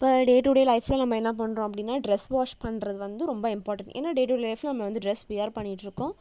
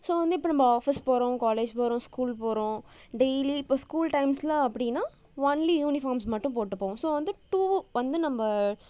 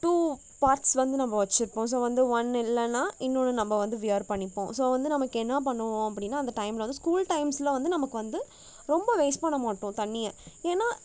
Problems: none marked